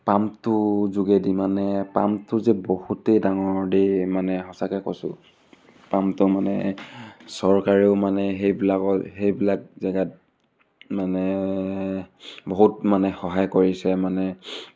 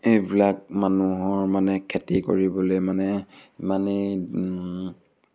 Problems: constant background noise, background conversations at intervals